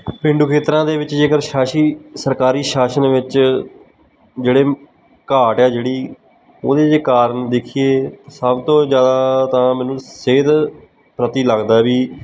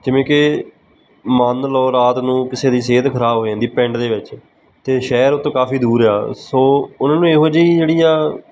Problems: background sounds at intervals